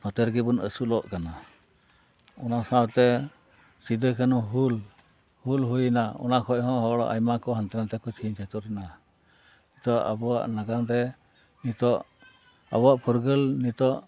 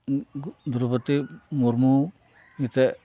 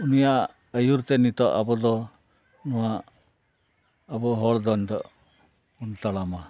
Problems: background sounds at intervals